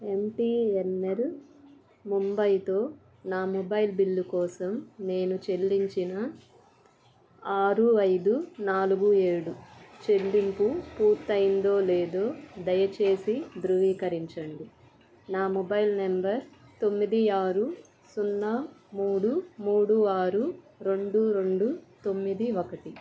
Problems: constant background noise